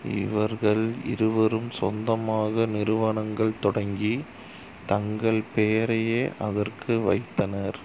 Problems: constant background noise